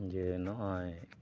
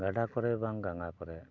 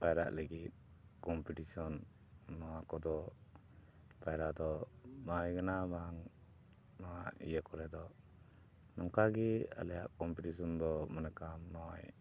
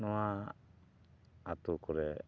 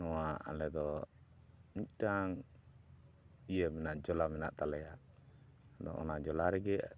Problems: background sounds at intervals, low volume